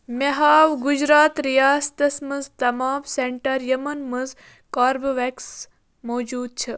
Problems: none marked